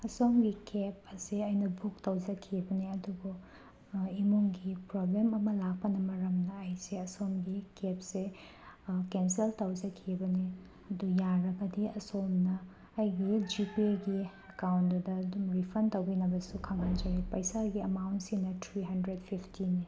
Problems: background sounds at intervals